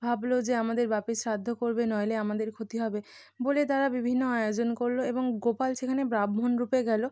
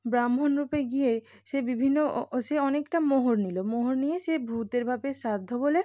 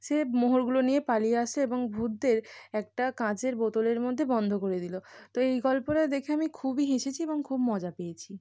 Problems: none marked